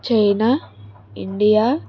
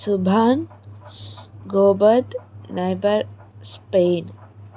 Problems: constant background noise